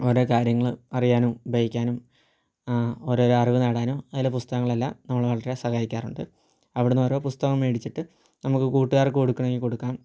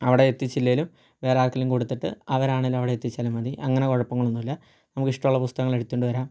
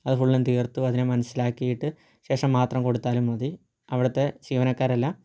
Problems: low volume